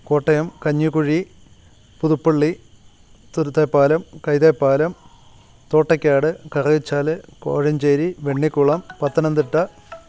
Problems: constant background noise